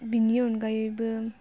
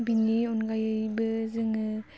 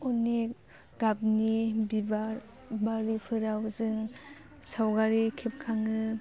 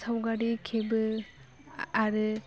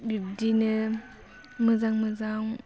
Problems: low volume